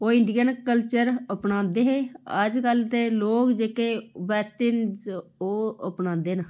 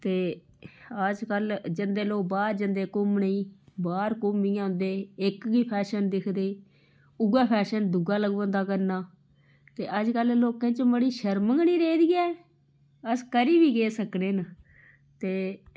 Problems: low volume